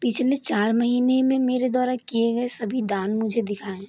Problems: none marked